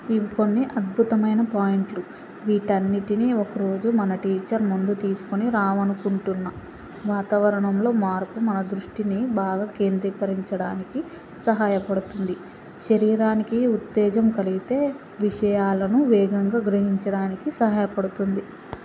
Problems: constant background noise